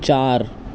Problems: constant background noise